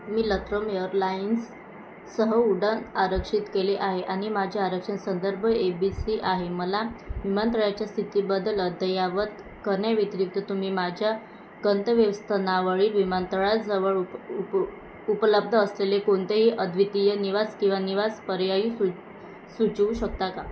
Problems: constant background noise, background conversations at intervals